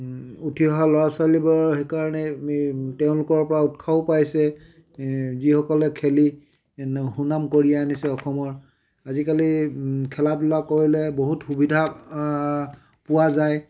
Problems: none marked